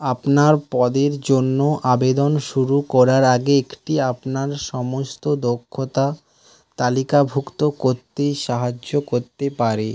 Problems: constant background noise